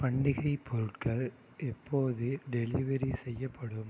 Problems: low volume